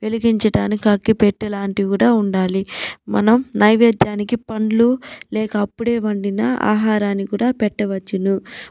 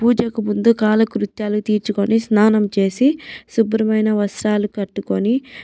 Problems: background sounds at intervals